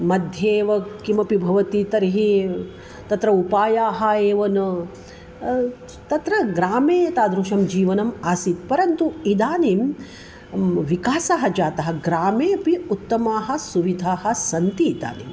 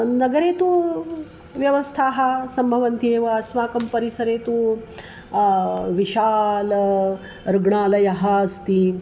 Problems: none marked